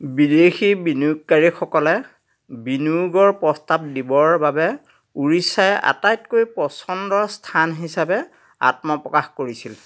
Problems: constant background noise